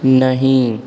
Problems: background sounds at intervals